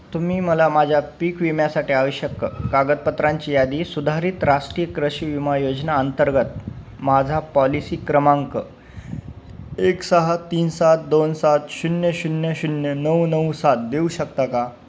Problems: none marked